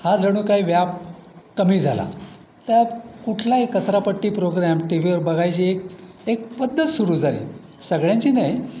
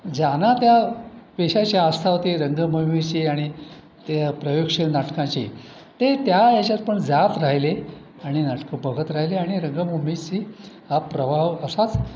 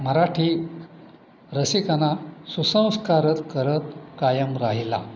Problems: none marked